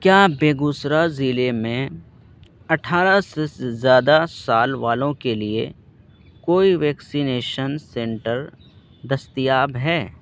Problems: constant background noise